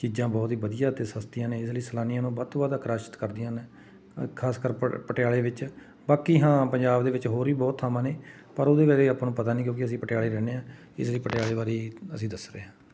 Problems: background sounds at intervals